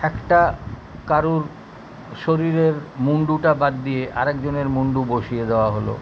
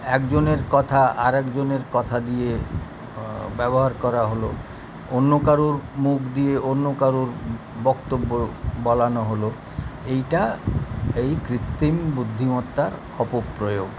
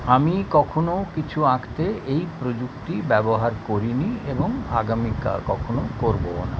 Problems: none marked